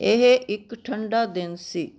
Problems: none marked